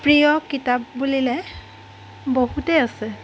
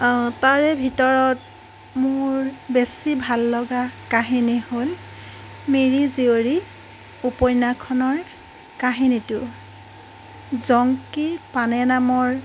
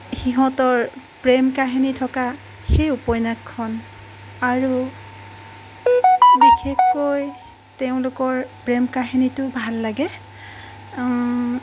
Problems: background sounds at intervals